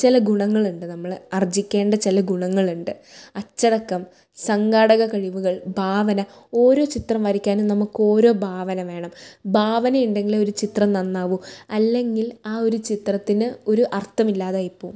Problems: none marked